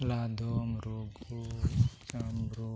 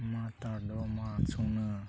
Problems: background sounds at intervals, low volume